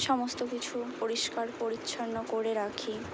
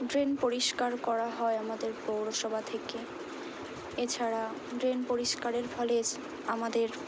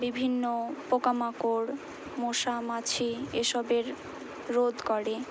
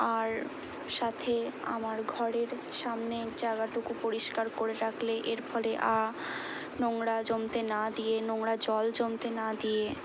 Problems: none marked